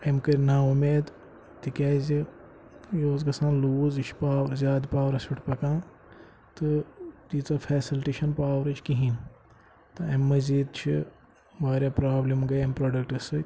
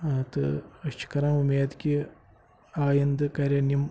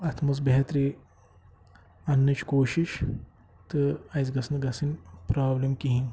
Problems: constant background noise